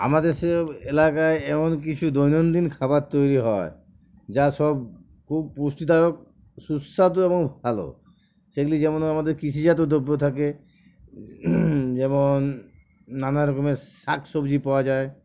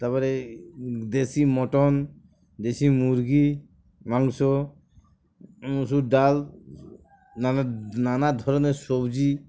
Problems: background sounds at intervals